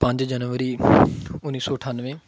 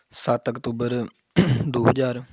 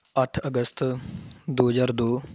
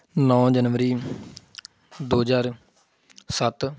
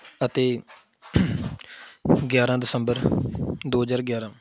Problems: background sounds at intervals